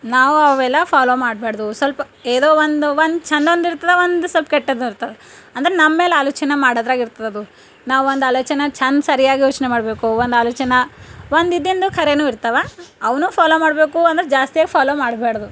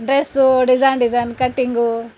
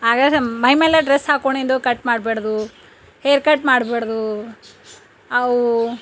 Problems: none marked